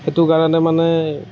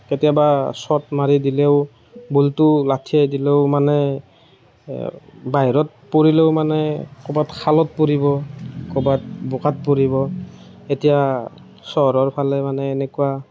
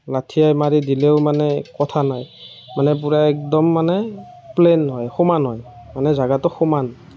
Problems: none marked